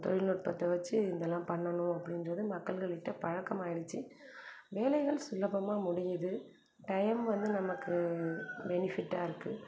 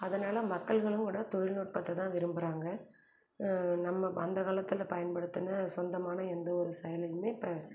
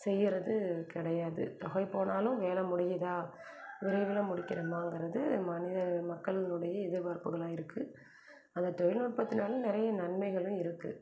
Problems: none marked